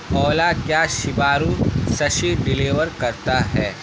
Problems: constant background noise